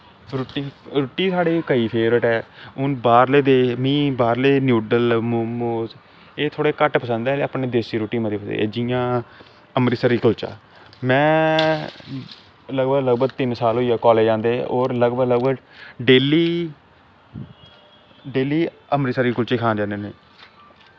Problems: constant background noise